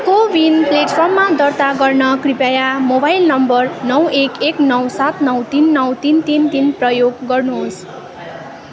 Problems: constant background noise